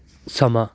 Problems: none marked